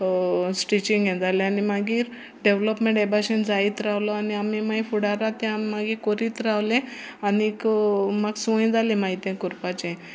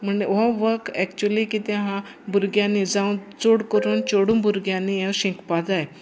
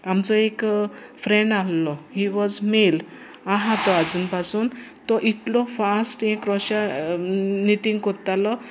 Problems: background sounds at intervals